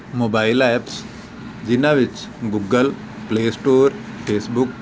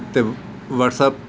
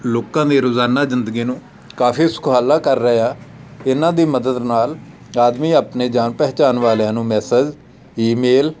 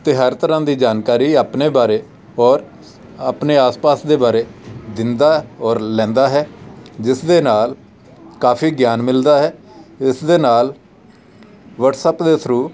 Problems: background sounds at intervals, background conversations at intervals